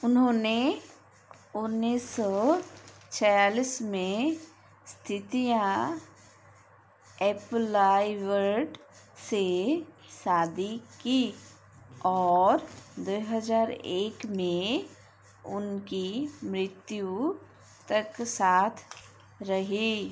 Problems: constant background noise